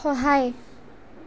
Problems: background sounds at intervals